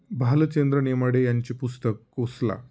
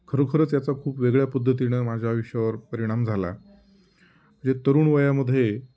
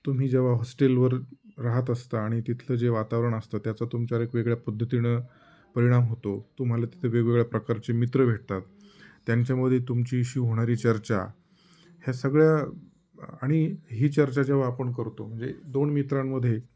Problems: none marked